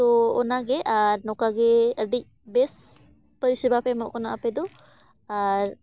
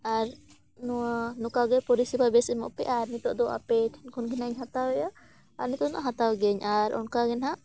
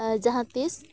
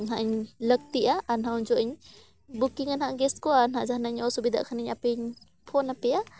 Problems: background sounds at intervals